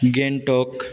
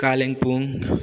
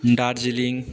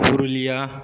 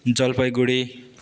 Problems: none marked